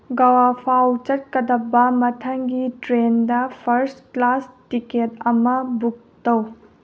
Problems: low volume